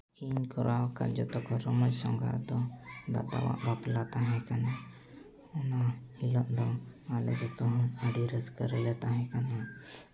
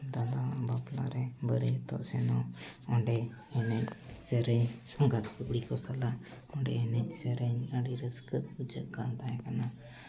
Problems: background conversations at intervals